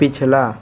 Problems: constant background noise